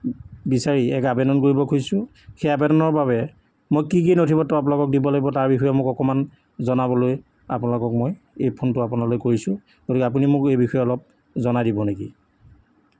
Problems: none marked